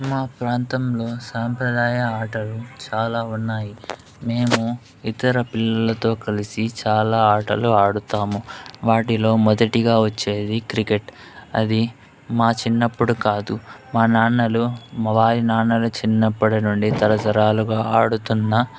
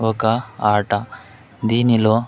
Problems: none marked